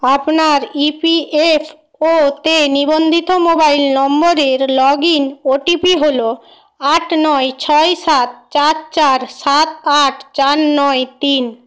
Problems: none marked